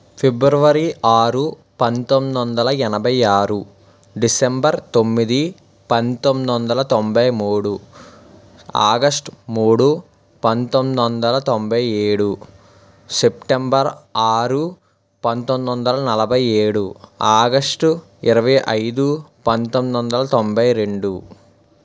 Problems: none marked